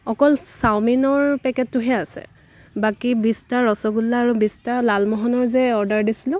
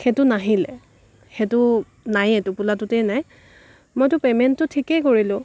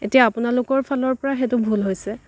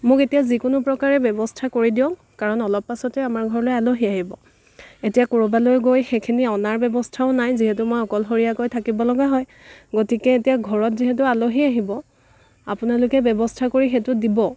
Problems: none marked